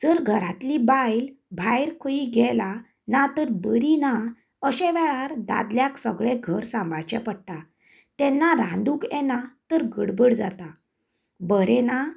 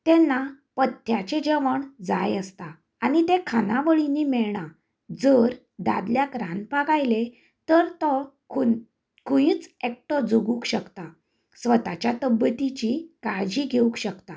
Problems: none marked